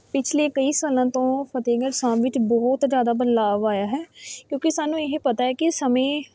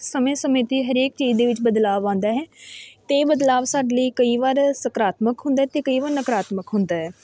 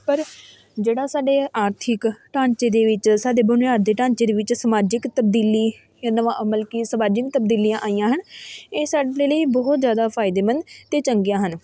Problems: background sounds at intervals, background conversations at intervals